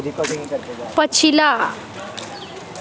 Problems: background conversations at intervals